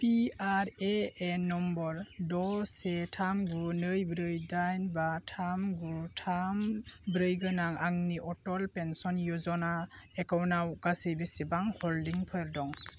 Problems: constant background noise